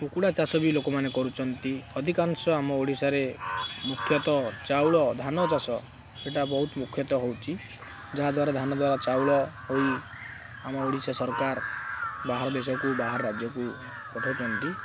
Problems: none marked